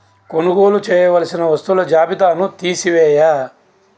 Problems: constant background noise